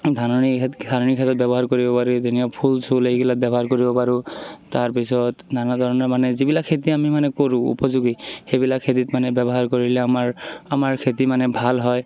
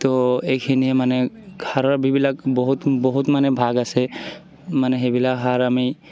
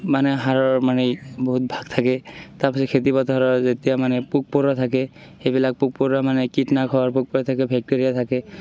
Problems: constant background noise, continuous background conversations